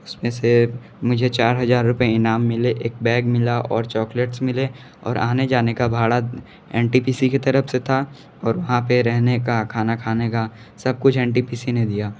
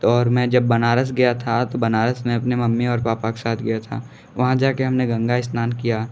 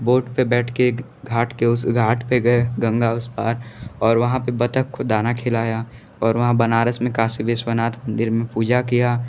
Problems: none marked